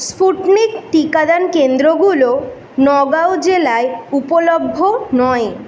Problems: none marked